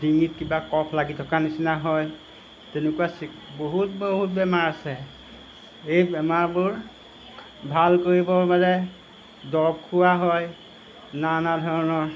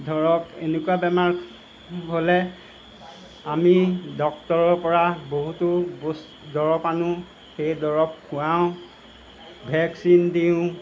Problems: background sounds at intervals